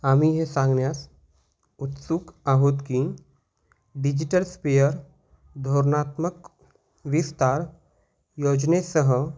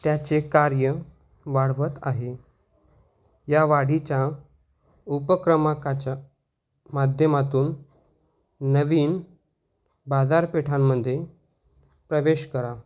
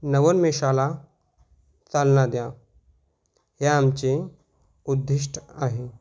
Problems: background sounds at intervals